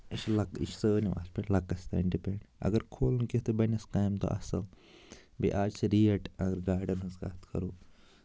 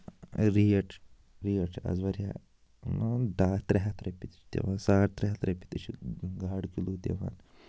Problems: constant background noise